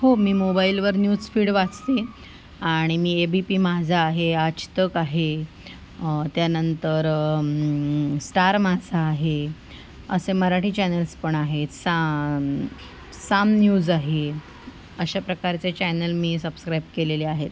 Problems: none marked